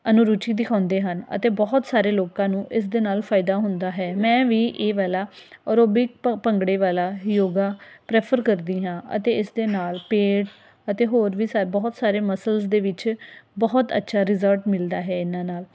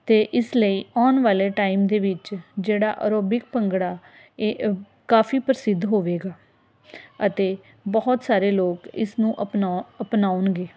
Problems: constant background noise